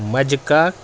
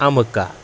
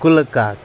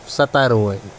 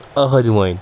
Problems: constant background noise